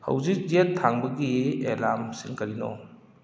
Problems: background conversations at intervals